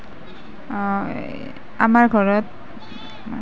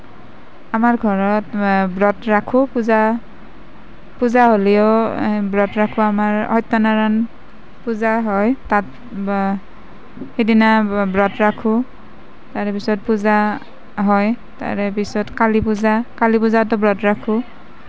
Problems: none marked